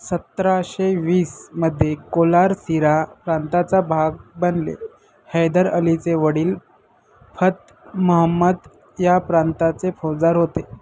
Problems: constant background noise, continuous background conversations